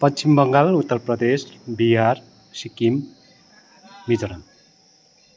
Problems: constant background noise